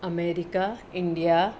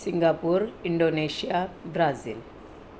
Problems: constant background noise, low volume